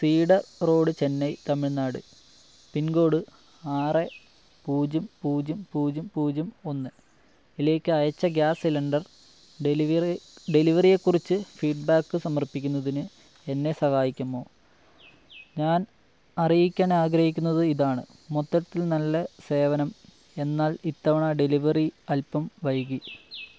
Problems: low volume